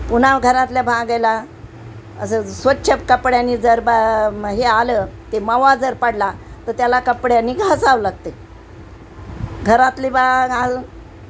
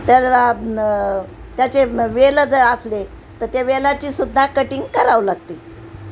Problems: constant background noise